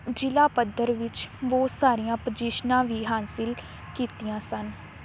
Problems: constant background noise